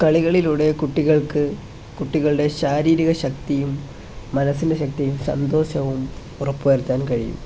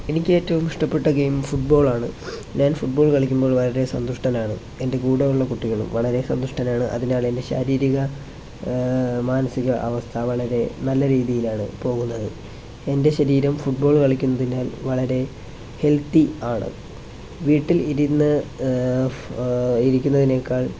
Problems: none marked